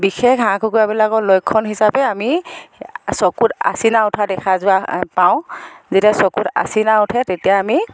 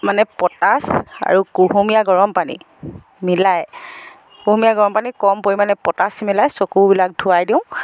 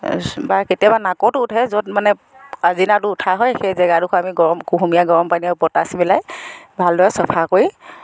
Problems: background sounds at intervals, background conversations at intervals